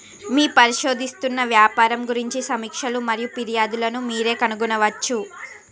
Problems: constant background noise, continuous background conversations